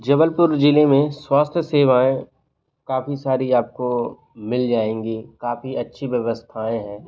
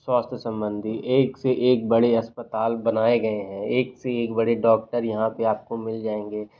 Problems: background sounds at intervals